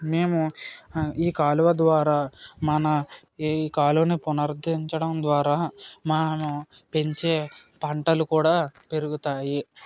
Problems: none marked